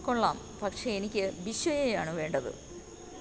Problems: constant background noise, low volume